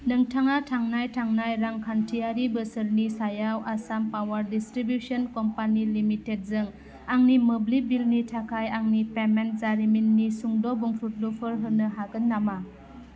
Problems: constant background noise